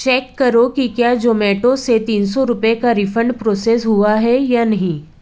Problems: none marked